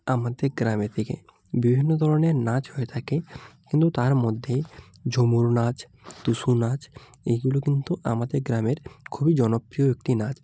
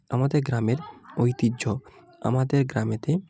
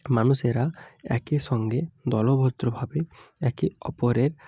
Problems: background conversations at intervals